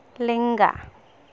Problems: constant background noise